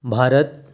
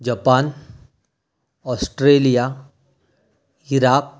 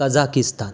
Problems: background sounds at intervals